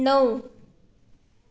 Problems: background sounds at intervals